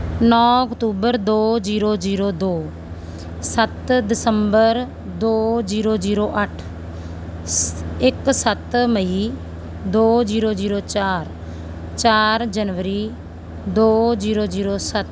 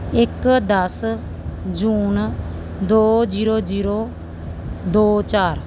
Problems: constant background noise, background conversations at intervals